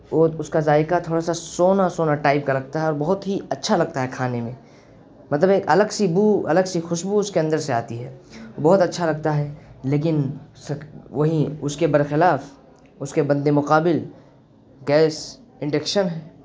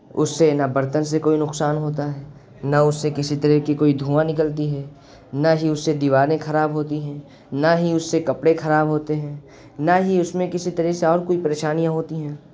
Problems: constant background noise